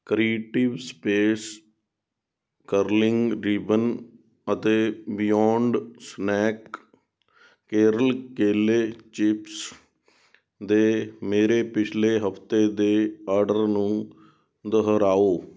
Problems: background sounds at intervals